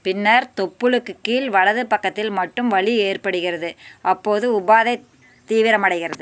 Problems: none marked